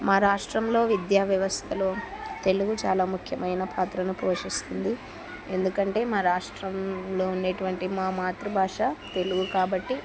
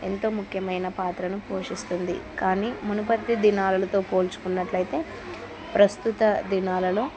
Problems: continuous background conversations